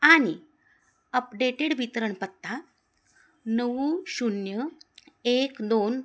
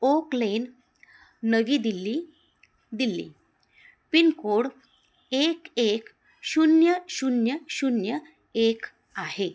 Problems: constant background noise, continuous background conversations